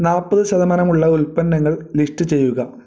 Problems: none marked